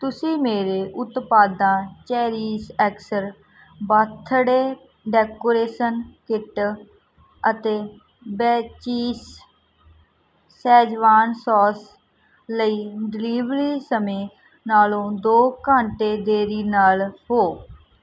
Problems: background sounds at intervals